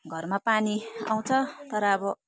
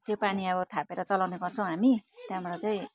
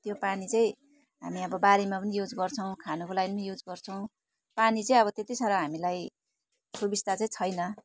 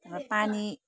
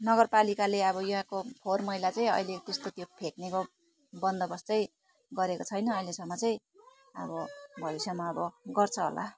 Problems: continuous background conversations